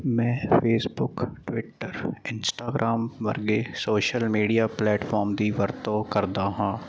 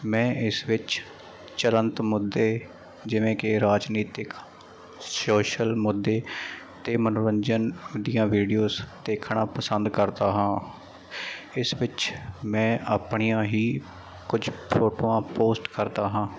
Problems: background sounds at intervals